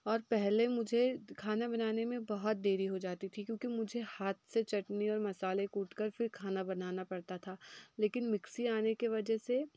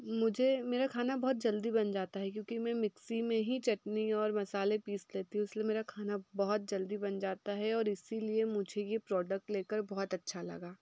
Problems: background sounds at intervals